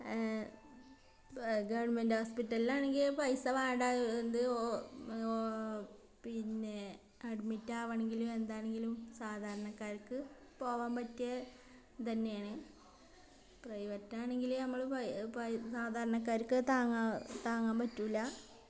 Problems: background sounds at intervals